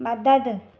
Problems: none marked